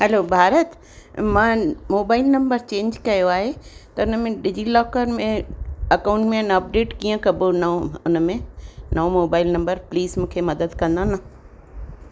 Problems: constant background noise